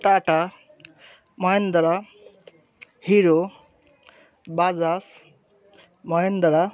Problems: none marked